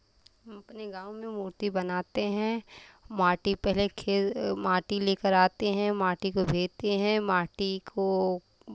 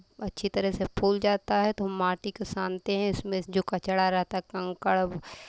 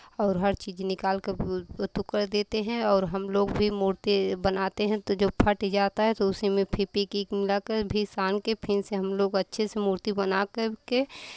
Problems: constant background noise